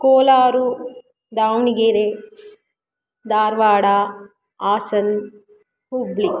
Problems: background conversations at intervals